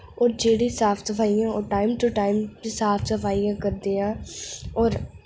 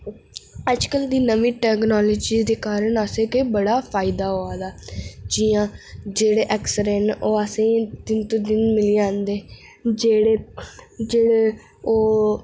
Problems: none marked